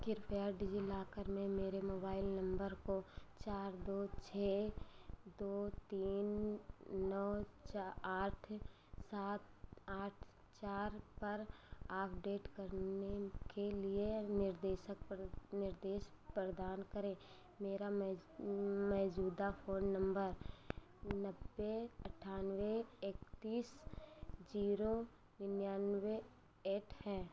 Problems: none marked